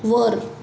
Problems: constant background noise